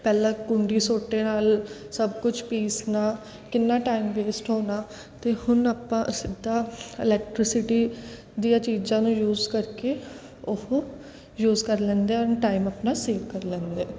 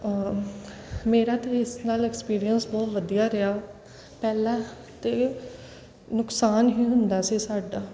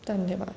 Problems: none marked